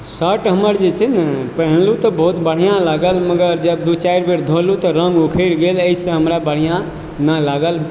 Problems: echo